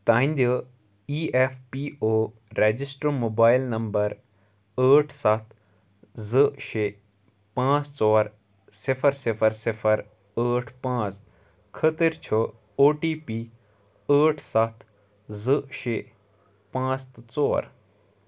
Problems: none marked